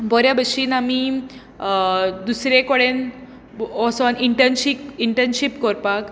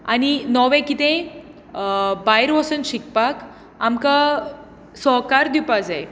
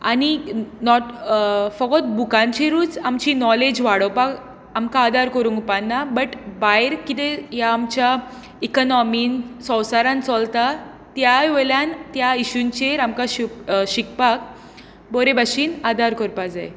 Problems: background sounds at intervals